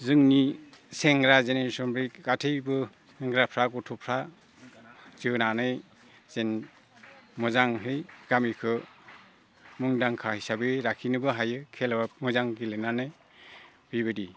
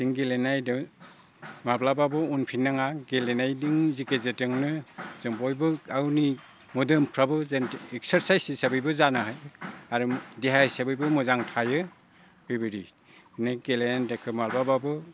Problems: low volume